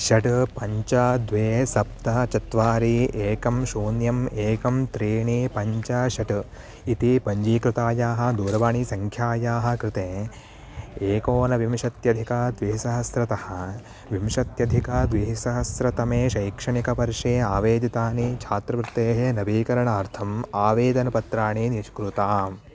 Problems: none marked